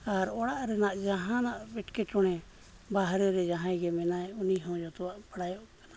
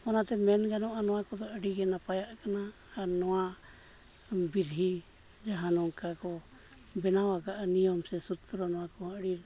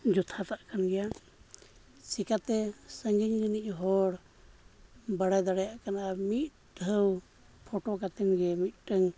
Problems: low volume